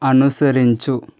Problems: none marked